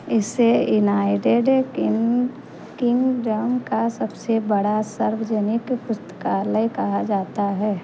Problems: constant background noise